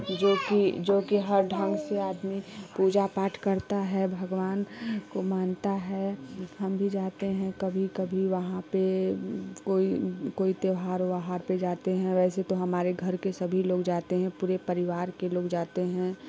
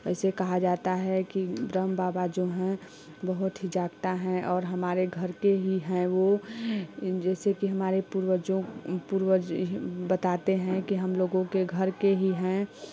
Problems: constant background noise, background conversations at intervals